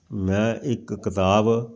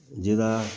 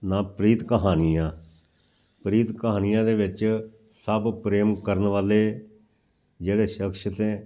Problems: background sounds at intervals